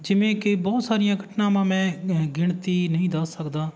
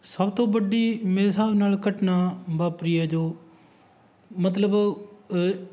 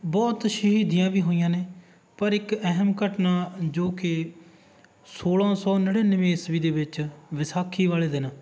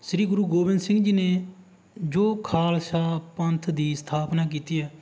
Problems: background sounds at intervals